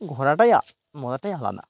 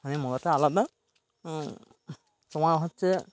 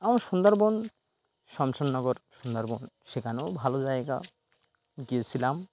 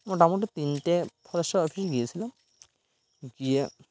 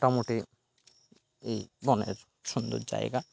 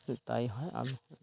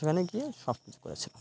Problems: constant background noise